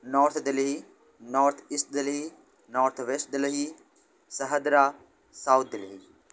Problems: background sounds at intervals